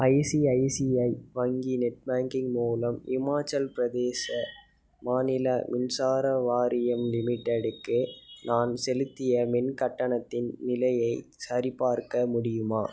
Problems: none marked